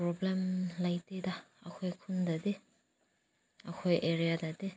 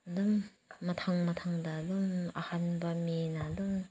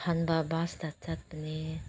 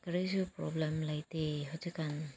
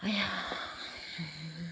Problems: background sounds at intervals